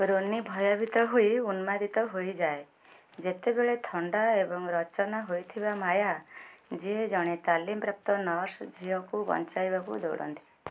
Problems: none marked